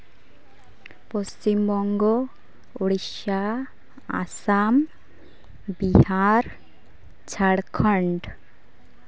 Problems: background sounds at intervals, continuous background conversations